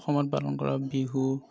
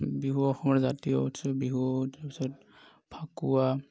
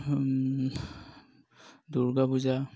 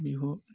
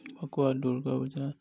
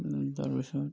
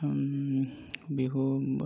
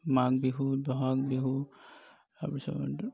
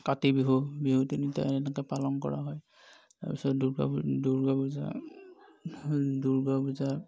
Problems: none marked